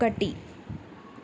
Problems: constant background noise